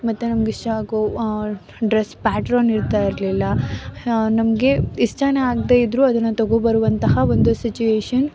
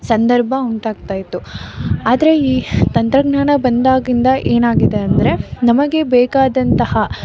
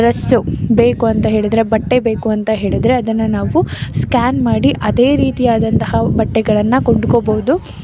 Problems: background sounds at intervals